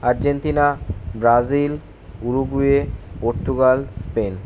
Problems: constant background noise